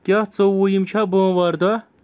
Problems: none marked